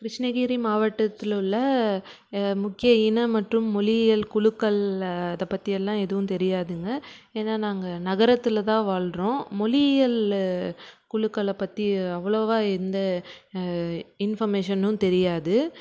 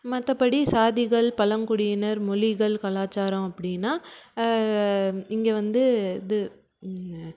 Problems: background sounds at intervals